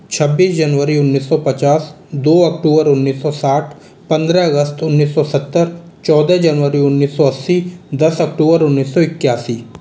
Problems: background sounds at intervals, echo